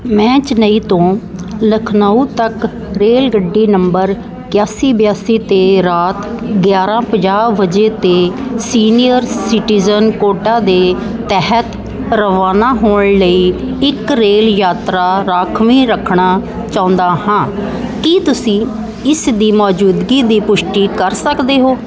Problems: none marked